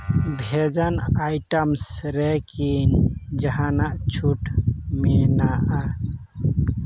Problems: background sounds at intervals